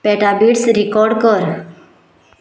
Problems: none marked